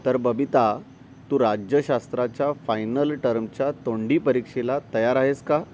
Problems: constant background noise